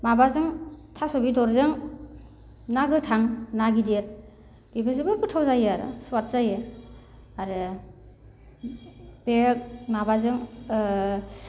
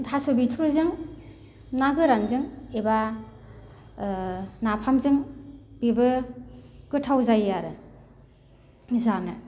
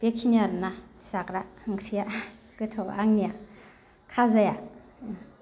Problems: none marked